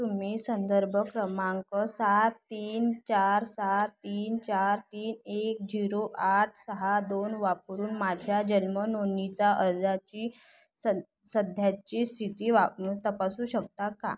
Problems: constant background noise